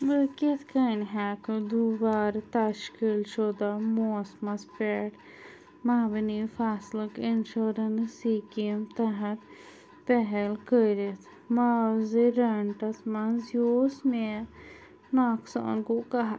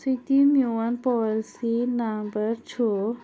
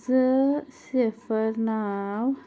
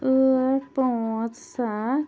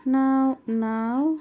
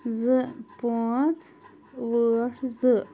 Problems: none marked